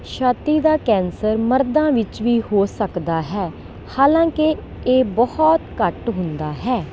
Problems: none marked